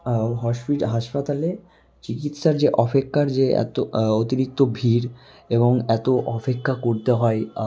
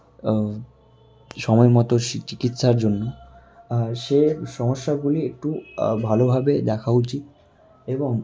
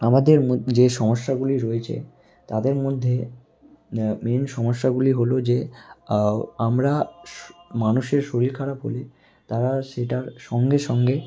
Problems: none marked